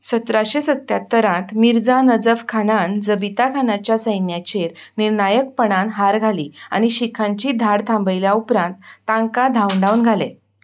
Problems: background sounds at intervals